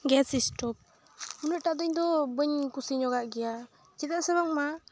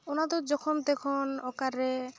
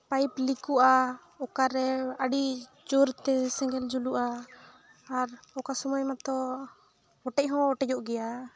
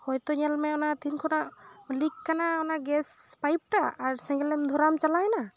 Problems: background sounds at intervals